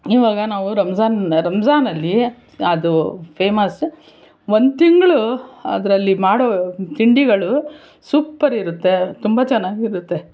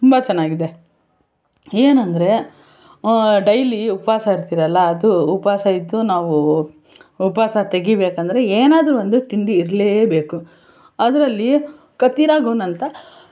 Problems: constant background noise